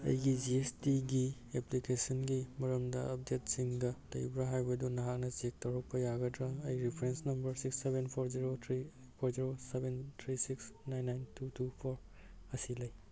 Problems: none marked